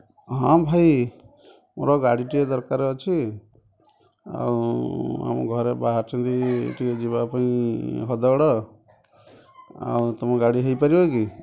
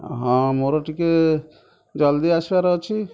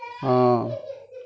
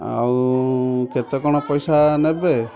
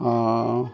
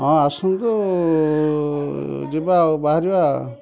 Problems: constant background noise, continuous background conversations